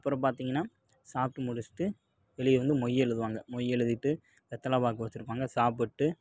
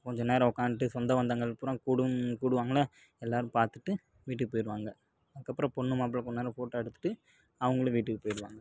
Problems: constant background noise